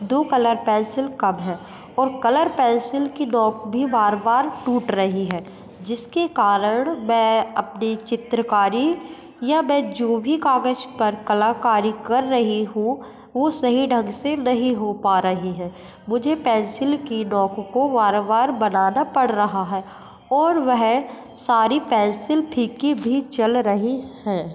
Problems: constant background noise, echo